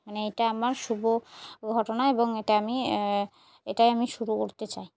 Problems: background sounds at intervals